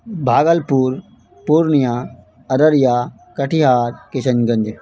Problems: constant background noise